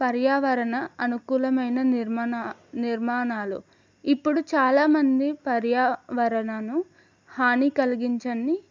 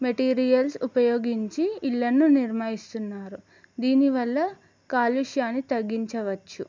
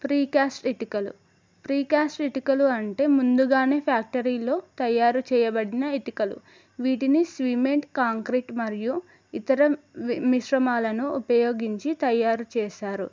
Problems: none marked